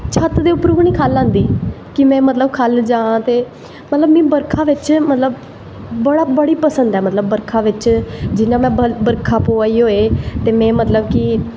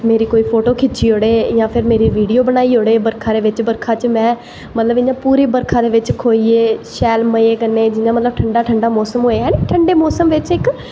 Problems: echo